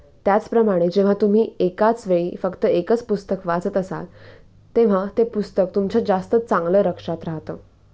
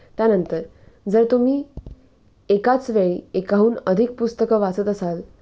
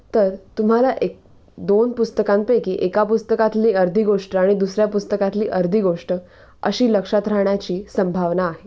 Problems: constant background noise, background conversations at intervals